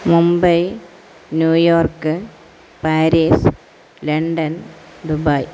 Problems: constant background noise